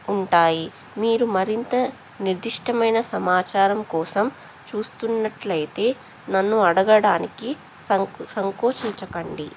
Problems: background sounds at intervals